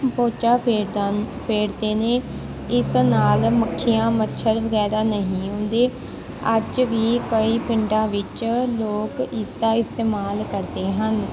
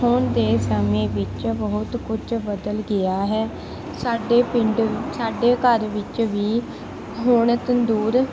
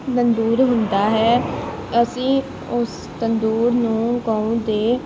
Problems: none marked